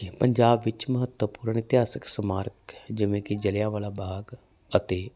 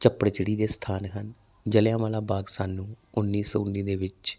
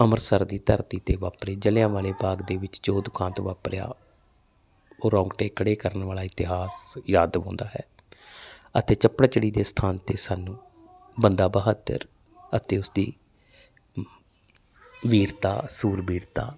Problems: none marked